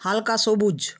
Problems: background sounds at intervals